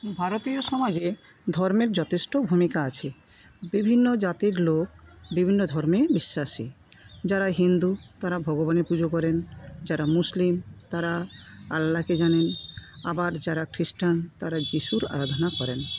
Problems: background sounds at intervals